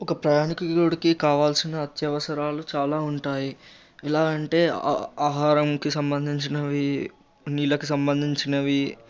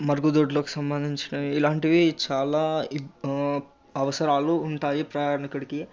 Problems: constant background noise